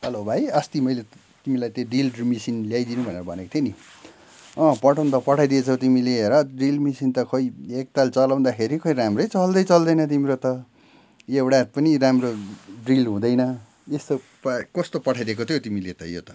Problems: none marked